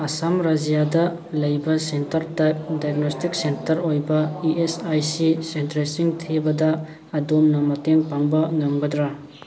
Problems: background sounds at intervals, background conversations at intervals